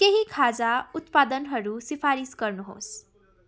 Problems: continuous background conversations